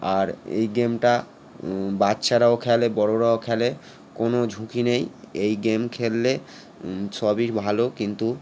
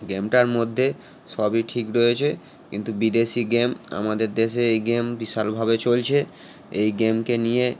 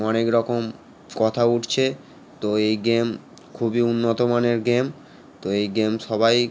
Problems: constant background noise